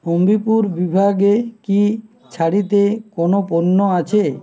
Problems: none marked